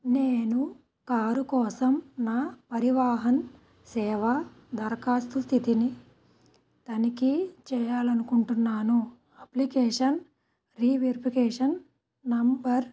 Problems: background sounds at intervals